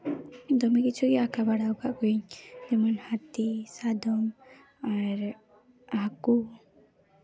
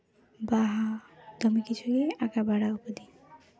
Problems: background conversations at intervals